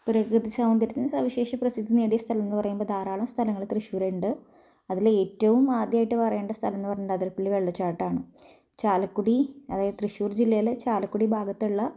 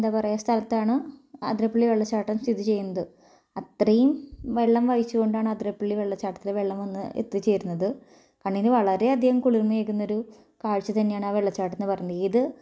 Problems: low volume